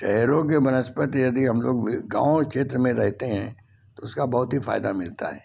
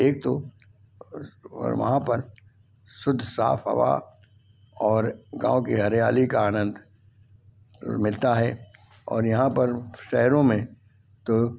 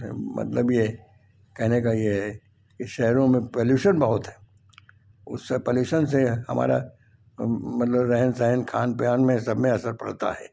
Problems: none marked